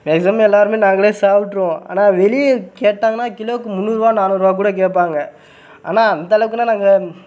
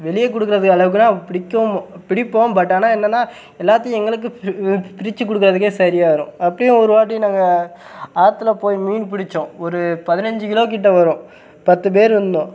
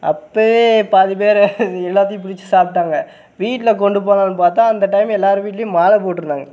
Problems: background sounds at intervals